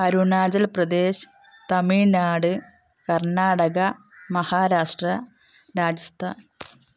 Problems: background sounds at intervals